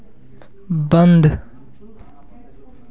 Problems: none marked